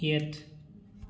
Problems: constant background noise